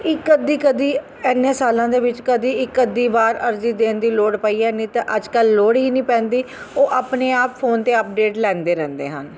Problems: constant background noise